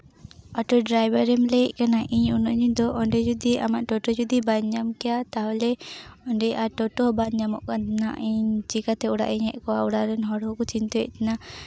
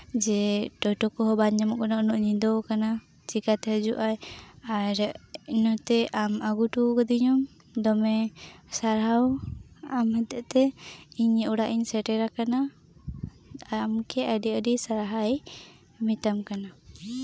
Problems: low volume